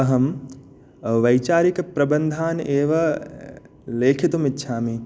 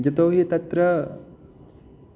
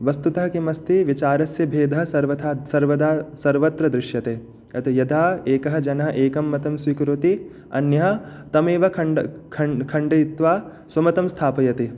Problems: none marked